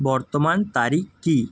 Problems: none marked